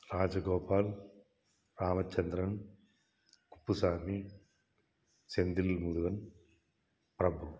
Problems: background sounds at intervals